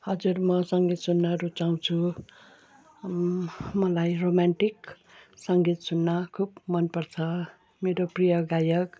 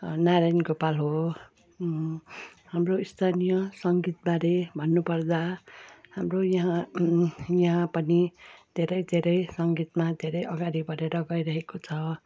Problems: background sounds at intervals